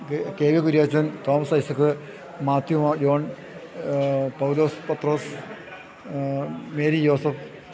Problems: constant background noise